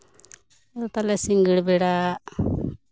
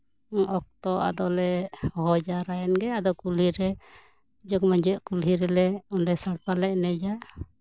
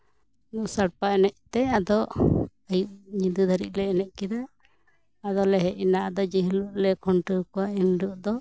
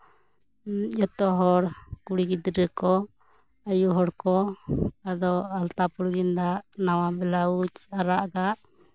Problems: background sounds at intervals, background conversations at intervals